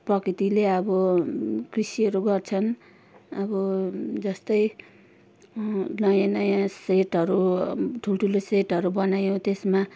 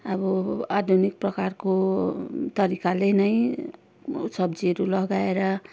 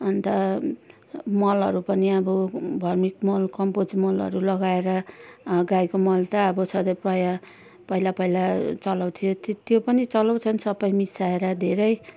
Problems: background conversations at intervals